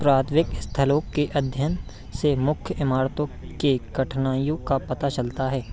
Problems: none marked